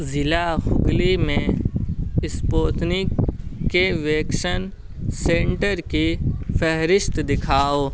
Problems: constant background noise